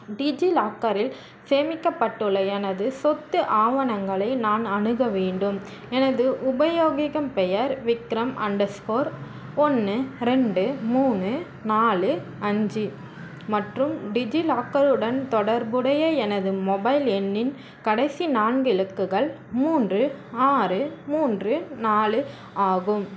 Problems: constant background noise